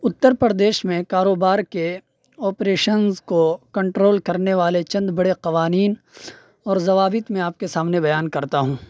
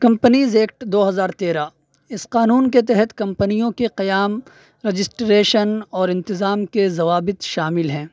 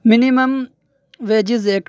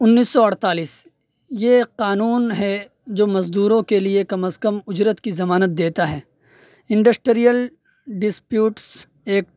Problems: none marked